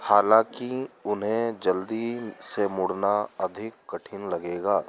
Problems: background sounds at intervals